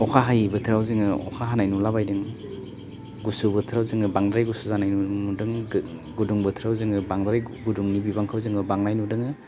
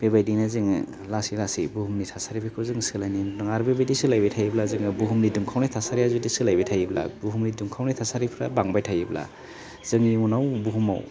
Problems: none marked